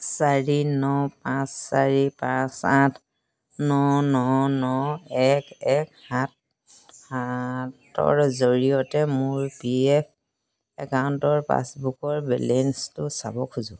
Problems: constant background noise